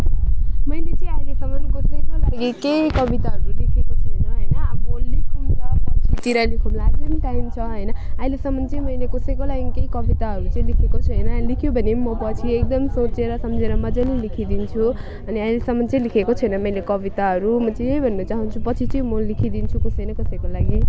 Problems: constant background noise